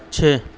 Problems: constant background noise